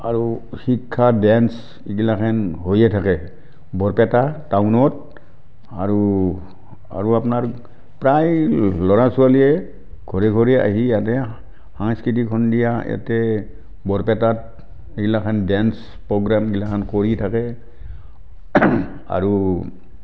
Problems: background sounds at intervals, background conversations at intervals